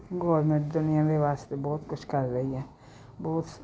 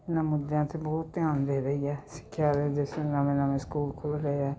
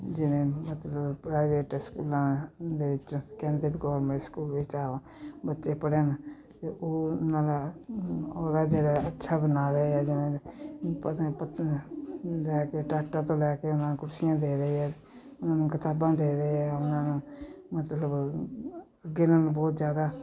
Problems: continuous background conversations